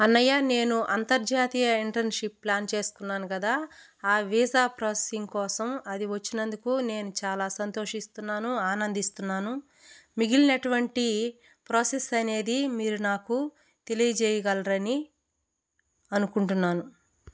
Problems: none marked